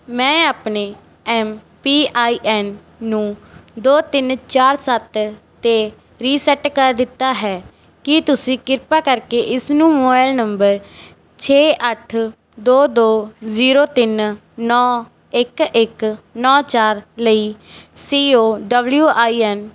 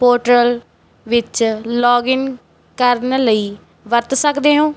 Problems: background sounds at intervals